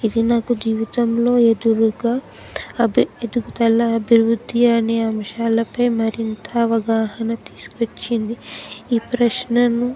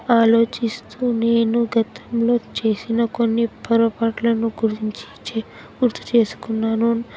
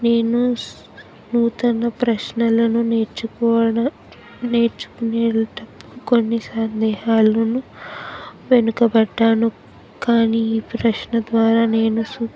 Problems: background sounds at intervals, background conversations at intervals